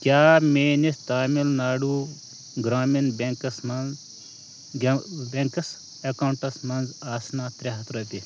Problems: none marked